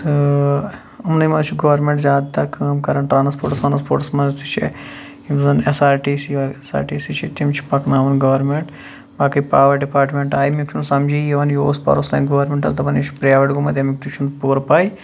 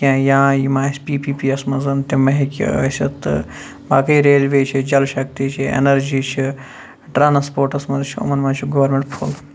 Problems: background sounds at intervals